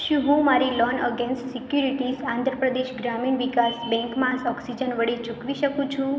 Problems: constant background noise